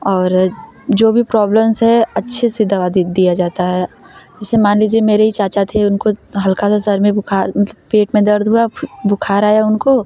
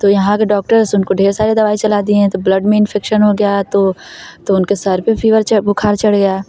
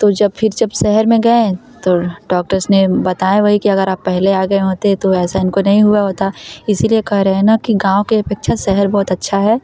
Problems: none marked